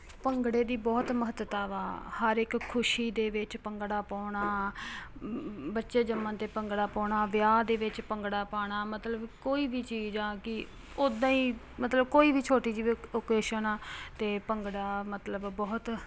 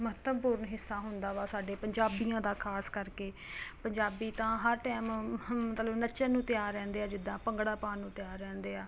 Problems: constant background noise